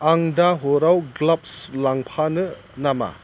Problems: constant background noise